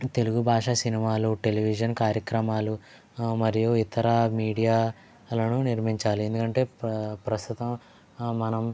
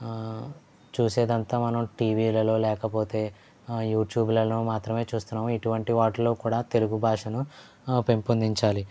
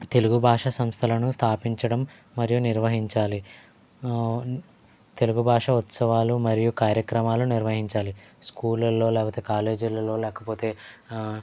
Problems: low volume